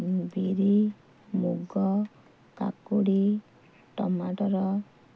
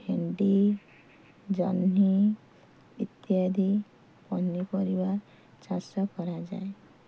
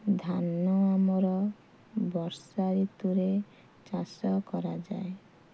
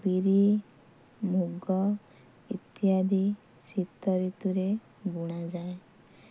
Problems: constant background noise